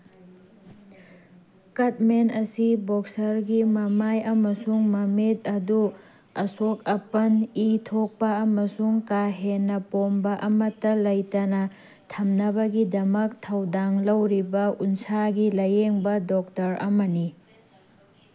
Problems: background sounds at intervals